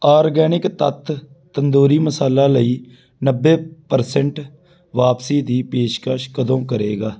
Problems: background sounds at intervals